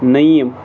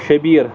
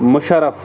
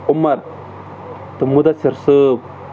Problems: constant background noise